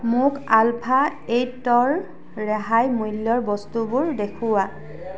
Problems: background sounds at intervals, background conversations at intervals